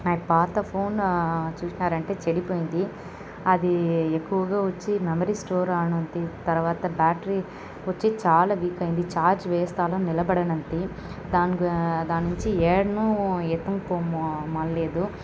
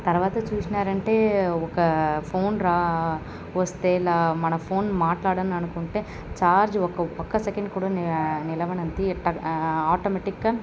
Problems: constant background noise